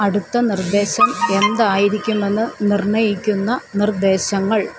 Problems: constant background noise